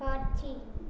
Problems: none marked